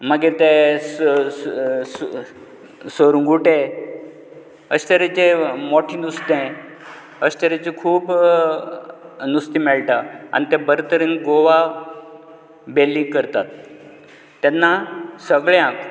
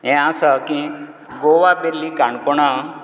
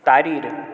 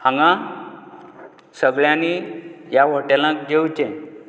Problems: none marked